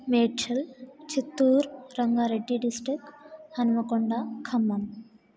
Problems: none marked